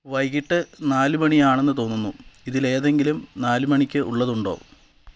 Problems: background sounds at intervals